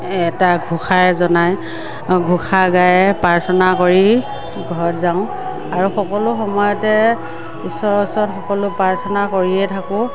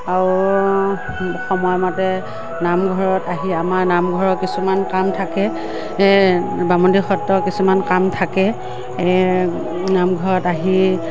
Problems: constant background noise, background conversations at intervals